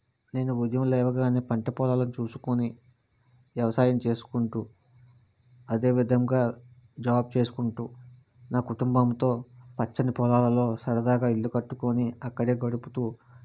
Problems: none marked